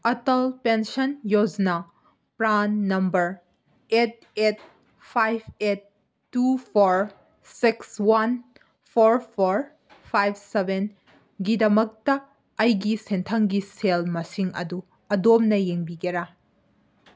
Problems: none marked